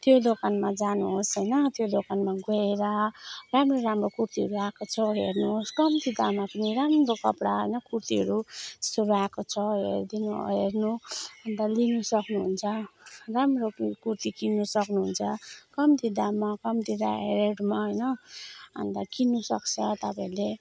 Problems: background sounds at intervals